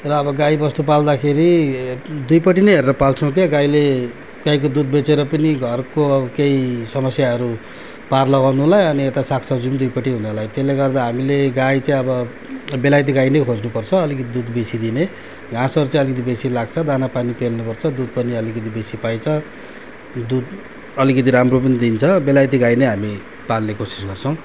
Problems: none marked